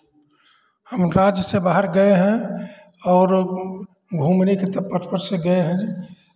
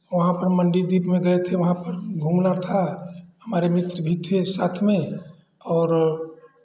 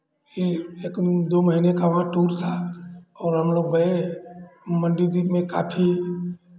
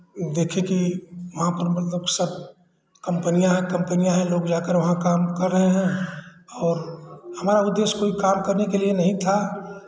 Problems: constant background noise, background conversations at intervals